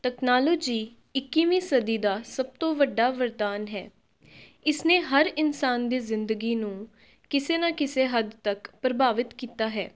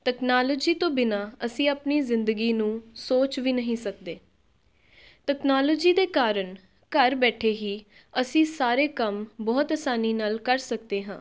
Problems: background sounds at intervals